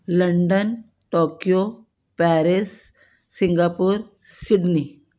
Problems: background sounds at intervals